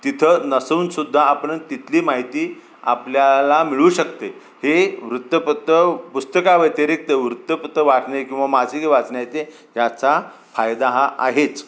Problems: constant background noise